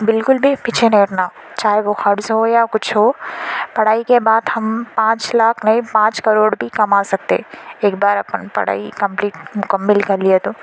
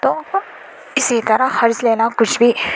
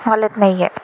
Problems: constant background noise